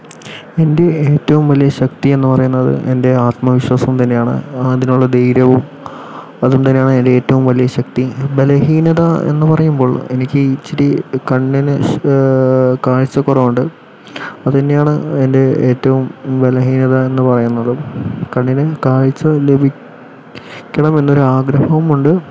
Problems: constant background noise